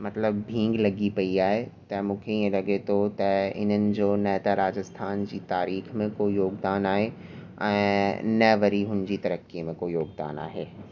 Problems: constant background noise